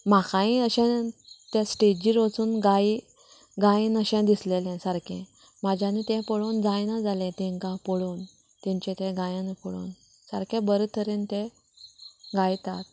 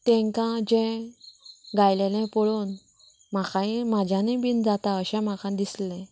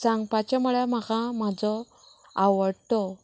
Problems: background conversations at intervals